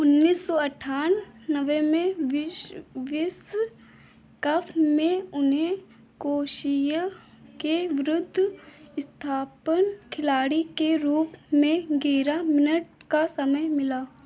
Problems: none marked